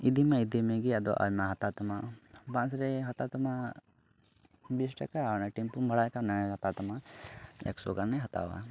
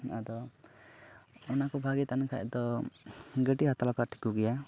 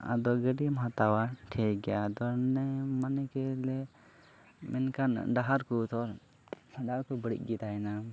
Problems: background sounds at intervals, low volume